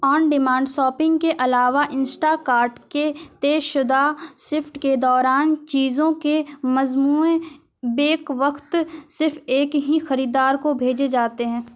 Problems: none marked